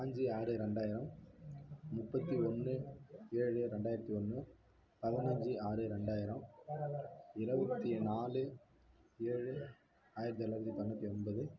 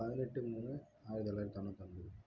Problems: low volume